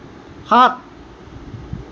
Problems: constant background noise